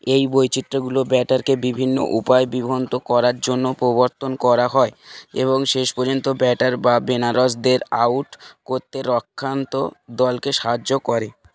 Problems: constant background noise